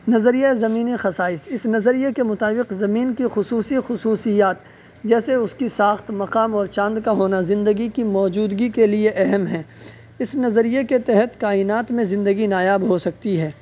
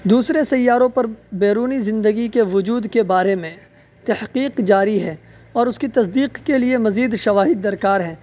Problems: constant background noise, background conversations at intervals